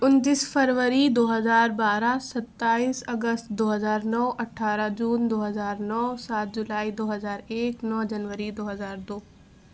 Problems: none marked